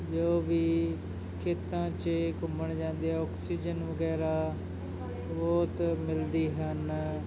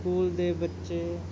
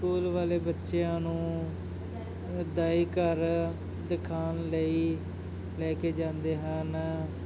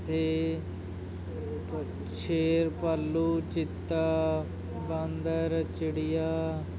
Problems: continuous background conversations